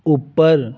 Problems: background sounds at intervals